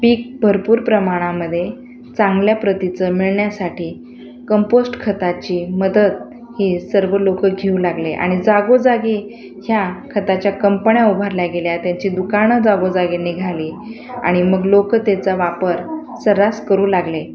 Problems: none marked